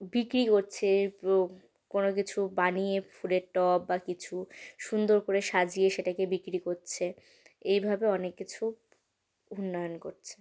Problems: none marked